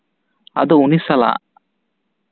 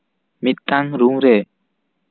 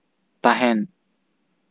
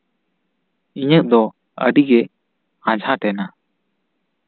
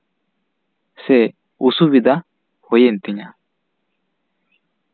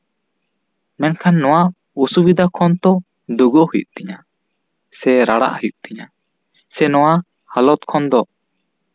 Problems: none marked